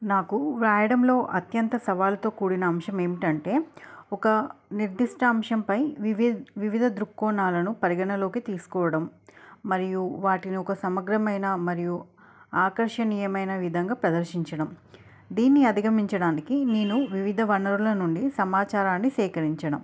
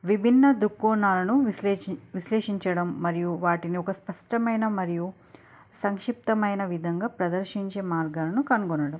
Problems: none marked